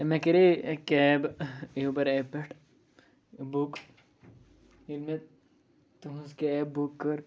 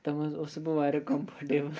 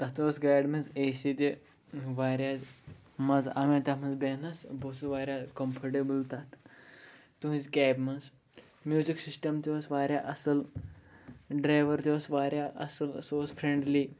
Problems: background sounds at intervals